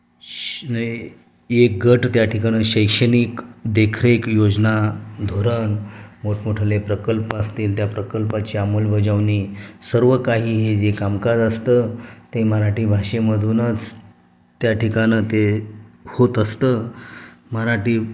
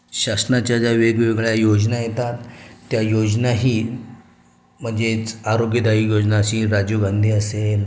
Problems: constant background noise